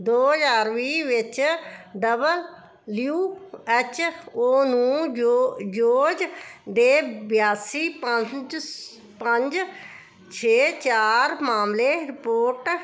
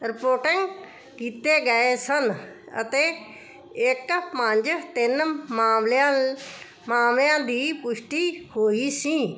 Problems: constant background noise